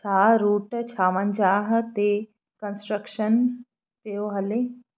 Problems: none marked